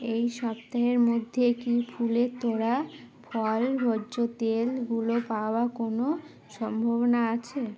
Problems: constant background noise